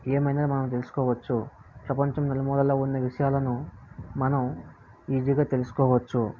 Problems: low volume